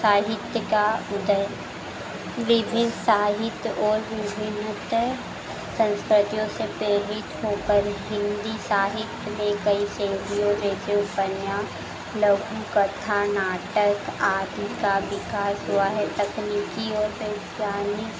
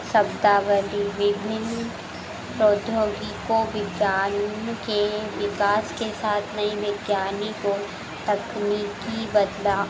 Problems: none marked